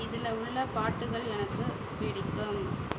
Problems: constant background noise